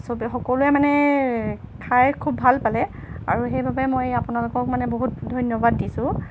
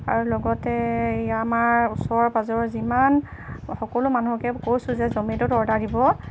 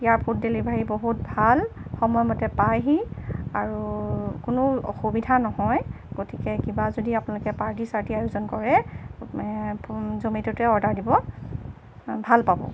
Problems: none marked